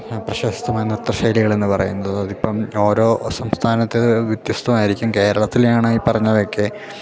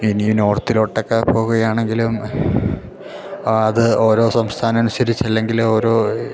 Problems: background sounds at intervals